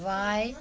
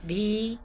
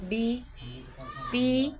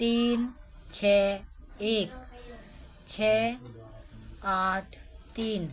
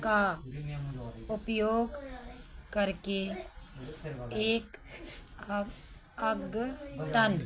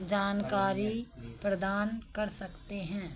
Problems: none marked